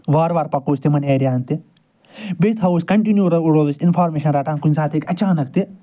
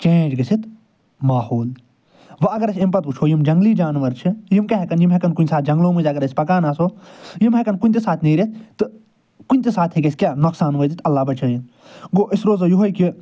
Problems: none marked